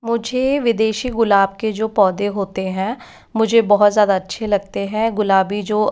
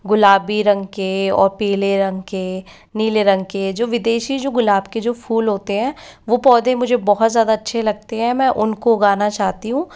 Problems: none marked